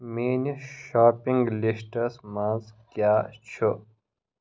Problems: none marked